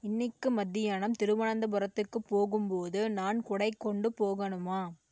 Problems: none marked